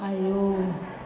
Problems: constant background noise